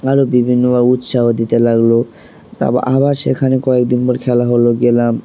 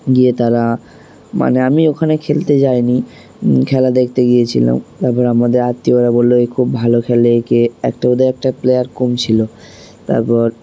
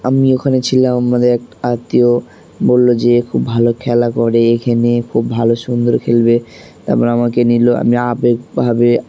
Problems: background sounds at intervals